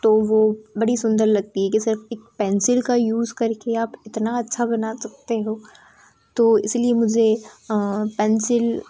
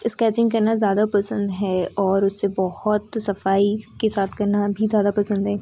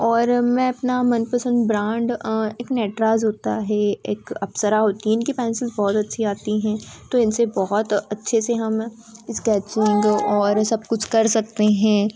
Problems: constant background noise